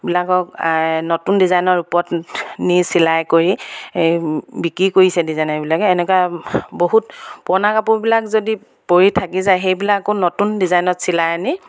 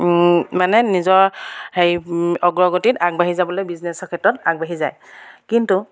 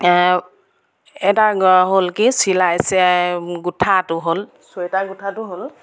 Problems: background sounds at intervals